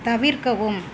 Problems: none marked